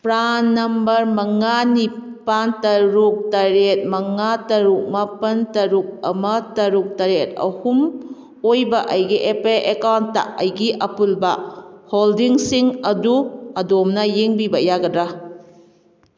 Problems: none marked